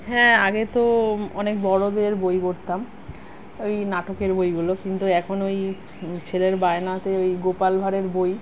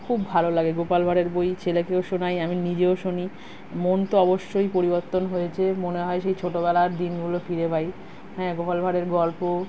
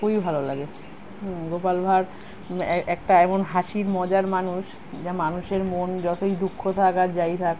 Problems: background sounds at intervals